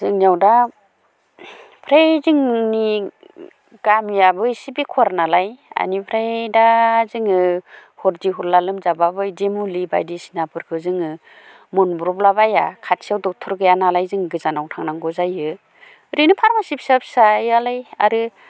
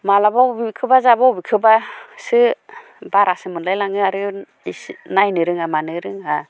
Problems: constant background noise